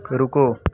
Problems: constant background noise